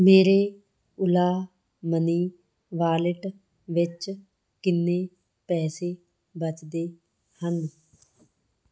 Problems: background sounds at intervals